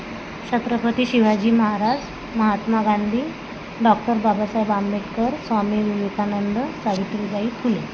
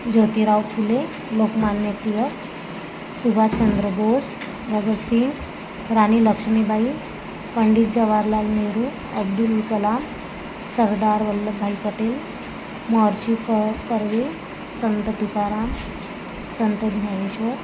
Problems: constant background noise